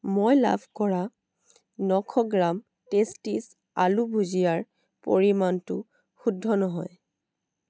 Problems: none marked